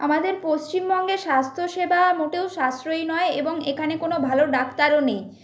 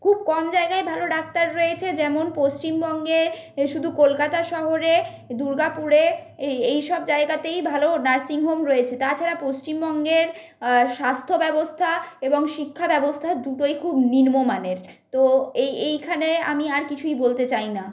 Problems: constant background noise